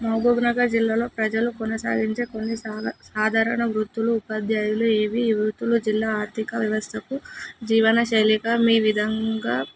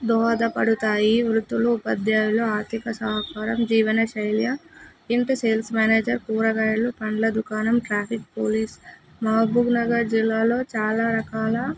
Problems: constant background noise